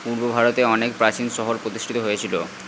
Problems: constant background noise